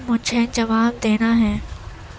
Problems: constant background noise